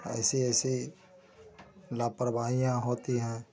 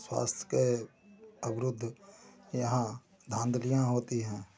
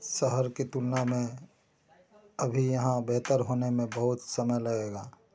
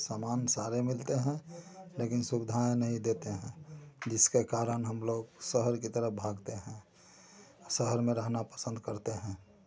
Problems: continuous background conversations